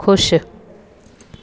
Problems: constant background noise